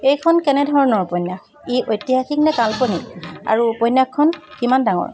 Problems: constant background noise